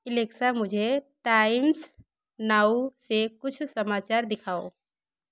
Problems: background sounds at intervals